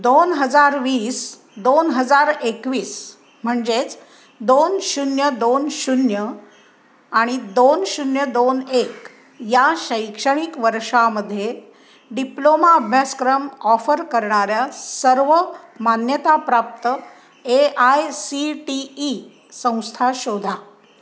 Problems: constant background noise